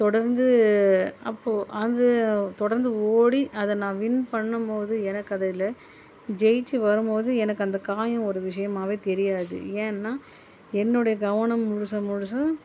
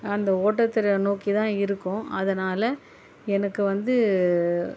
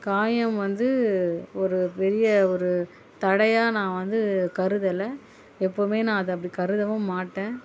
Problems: none marked